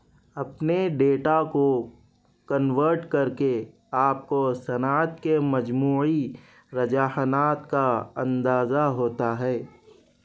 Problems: none marked